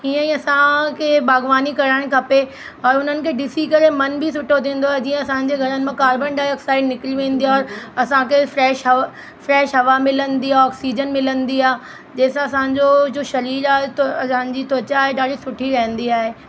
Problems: constant background noise